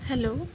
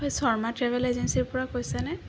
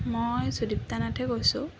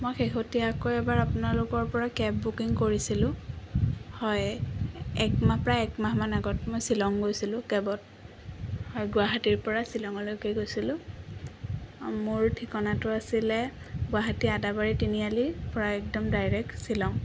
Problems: constant background noise